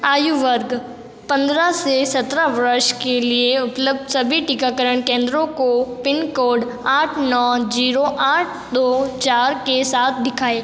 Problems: none marked